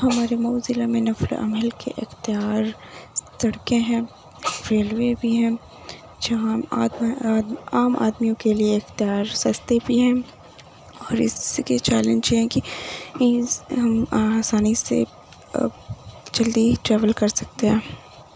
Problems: constant background noise